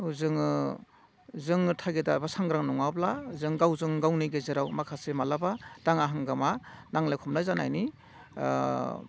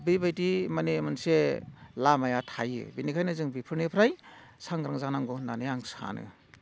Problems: none marked